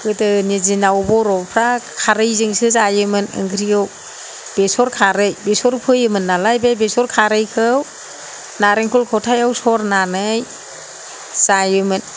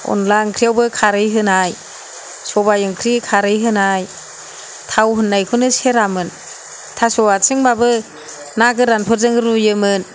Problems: none marked